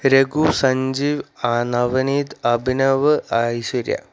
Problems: none marked